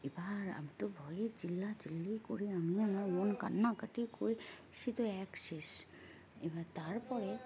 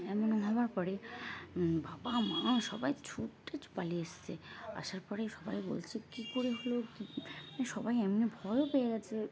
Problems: constant background noise, continuous background conversations